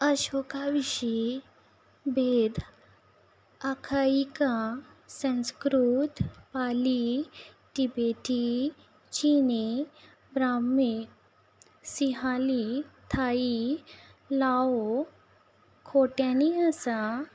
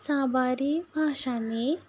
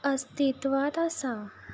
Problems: background sounds at intervals